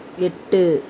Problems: constant background noise, background conversations at intervals